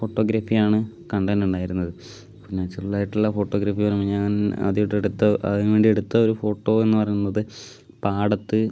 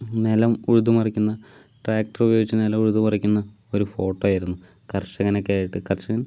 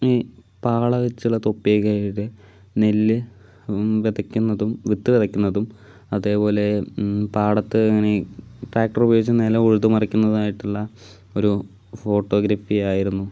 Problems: none marked